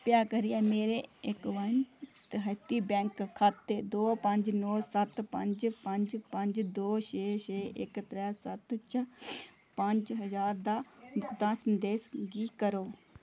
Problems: low volume